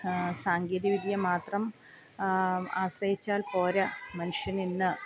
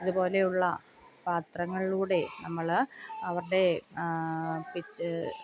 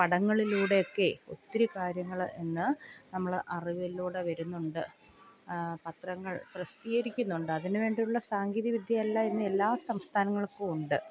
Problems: background sounds at intervals, low volume